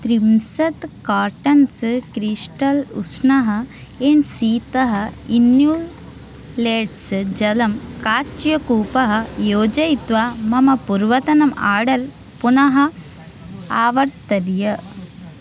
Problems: background sounds at intervals